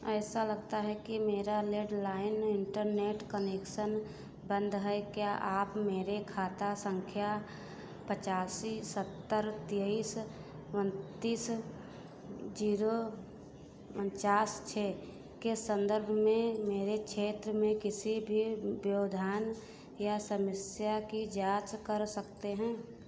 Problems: constant background noise